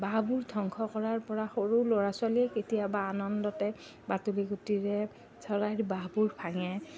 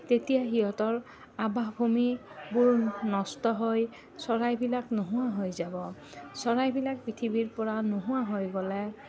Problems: none marked